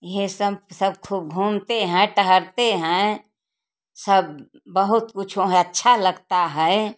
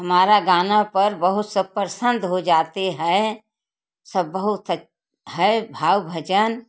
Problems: constant background noise